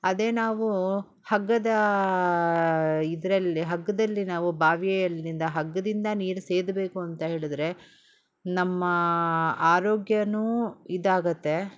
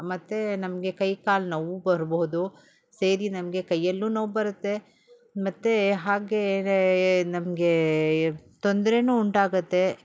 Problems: none marked